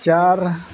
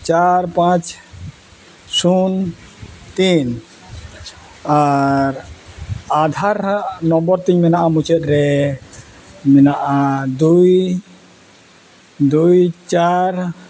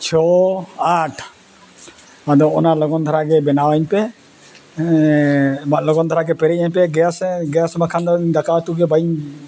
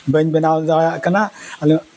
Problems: background sounds at intervals